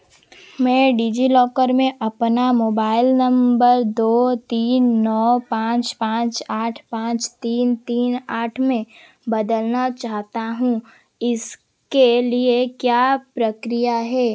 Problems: constant background noise